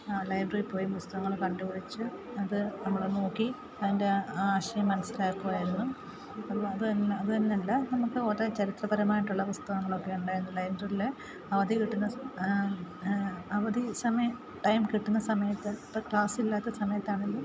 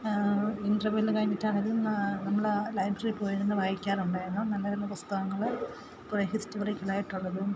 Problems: constant background noise, low volume